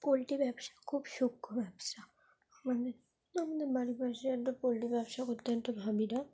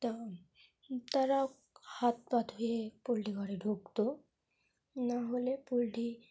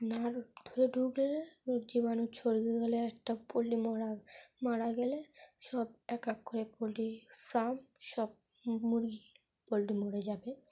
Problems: none marked